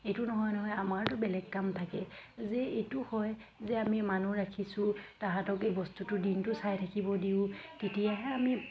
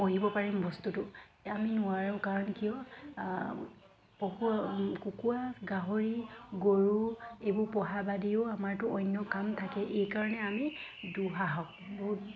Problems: constant background noise, background conversations at intervals